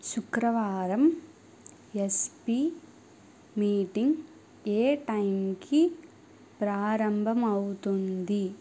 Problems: none marked